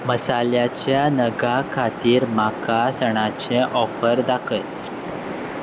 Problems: background sounds at intervals